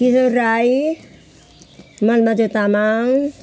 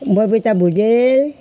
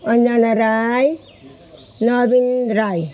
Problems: none marked